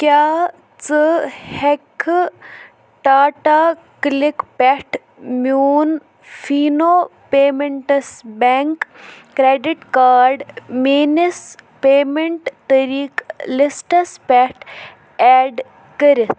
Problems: none marked